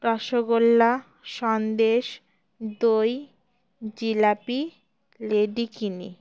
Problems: background sounds at intervals